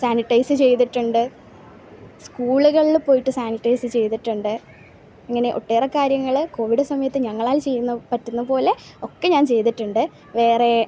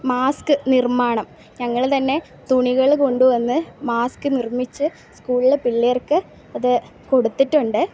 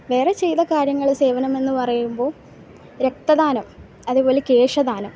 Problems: background sounds at intervals